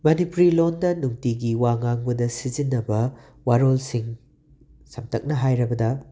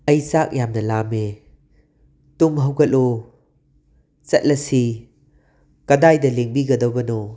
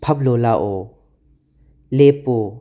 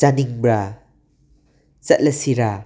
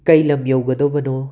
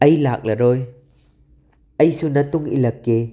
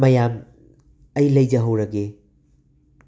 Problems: background sounds at intervals